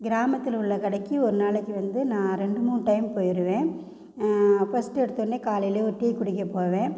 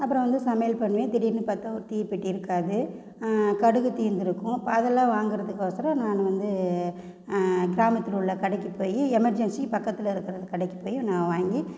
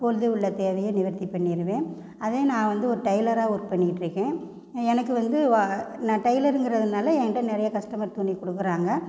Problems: constant background noise